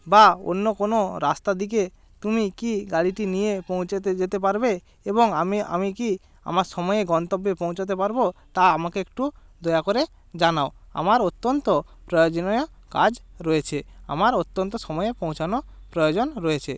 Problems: constant background noise